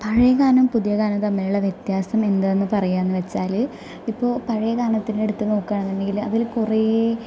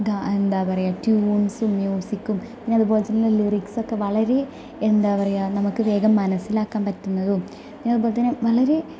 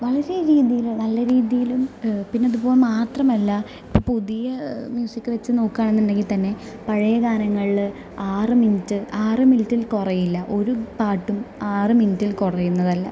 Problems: none marked